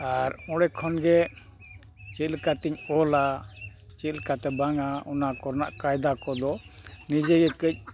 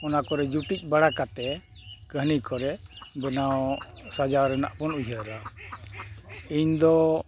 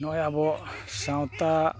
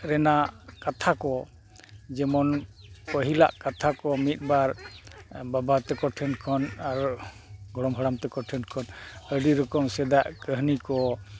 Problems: constant background noise